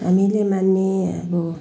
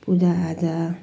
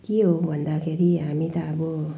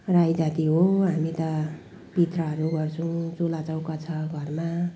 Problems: background sounds at intervals